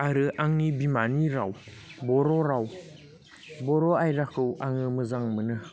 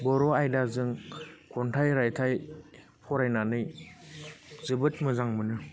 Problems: constant background noise